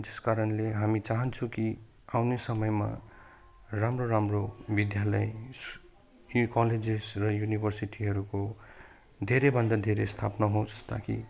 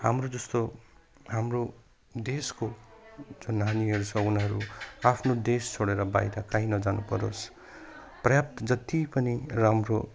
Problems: none marked